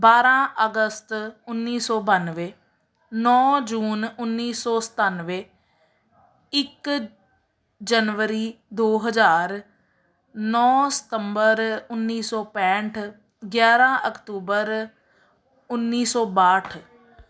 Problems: none marked